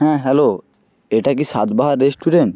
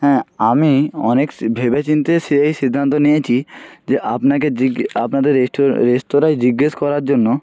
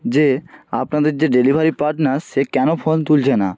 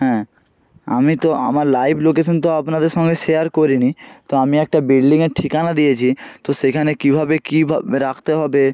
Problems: none marked